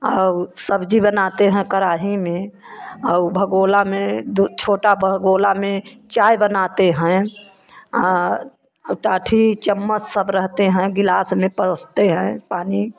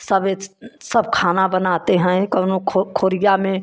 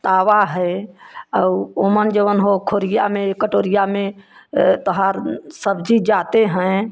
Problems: none marked